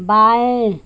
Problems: constant background noise